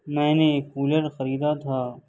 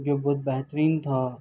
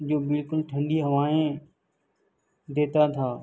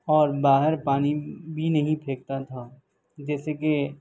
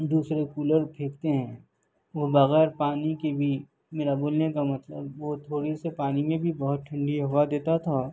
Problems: none marked